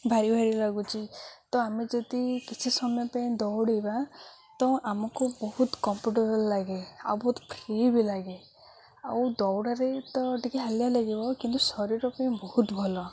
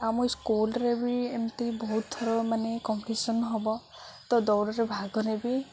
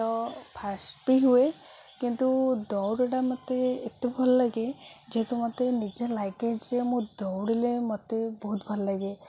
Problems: none marked